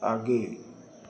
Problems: low volume